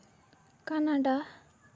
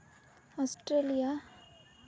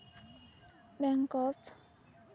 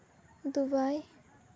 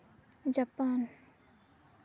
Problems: none marked